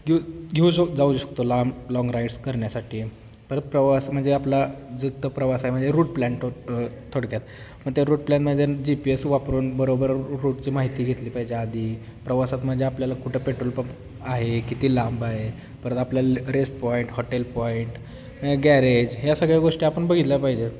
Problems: none marked